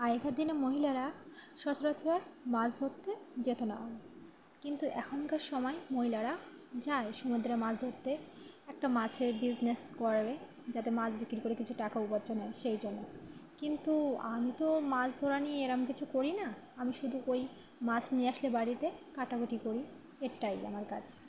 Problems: none marked